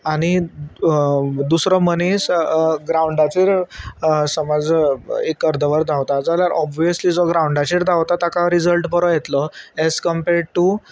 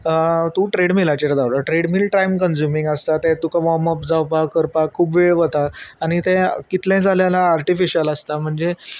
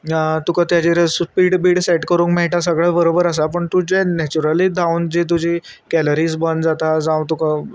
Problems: constant background noise